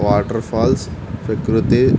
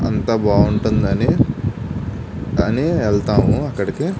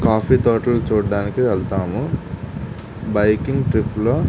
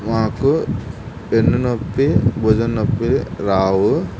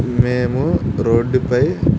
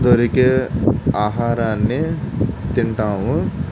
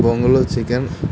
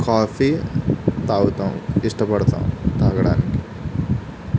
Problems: none marked